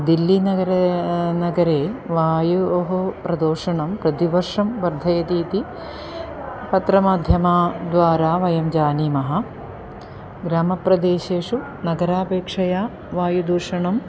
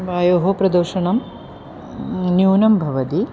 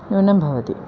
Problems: constant background noise